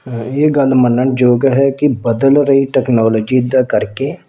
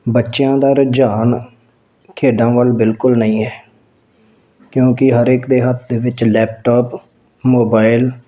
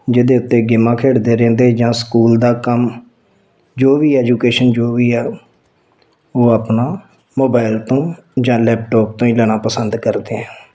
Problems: none marked